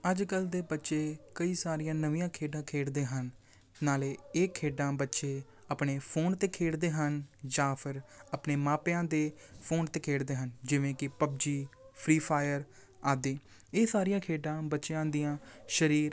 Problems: background sounds at intervals